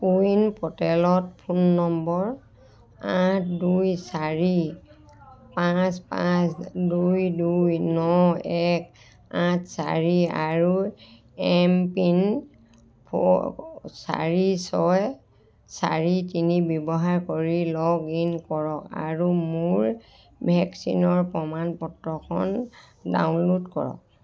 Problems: none marked